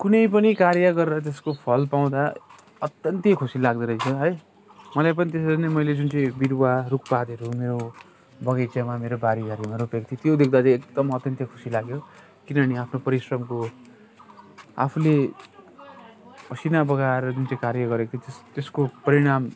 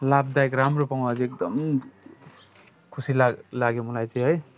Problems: none marked